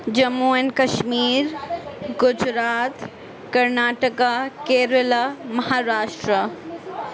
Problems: background sounds at intervals